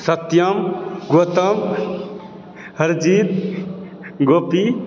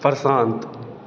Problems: background sounds at intervals